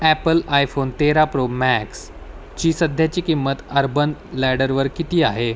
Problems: constant background noise